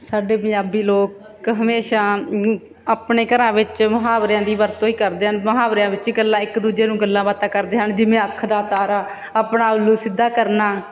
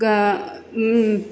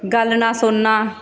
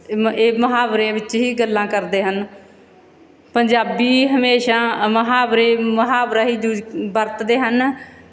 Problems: background sounds at intervals